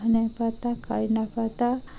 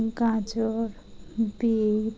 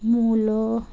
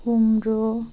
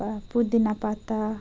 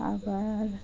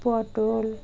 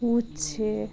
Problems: none marked